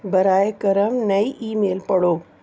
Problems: constant background noise